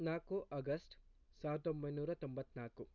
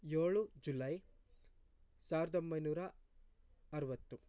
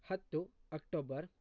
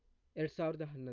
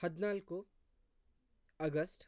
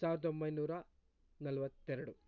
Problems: low volume